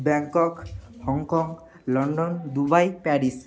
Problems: background sounds at intervals, background conversations at intervals